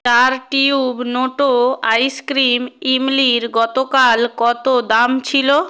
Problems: none marked